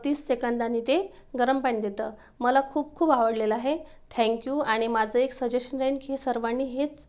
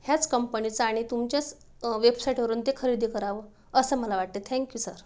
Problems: none marked